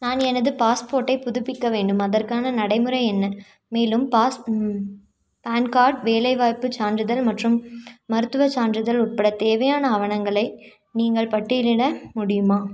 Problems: none marked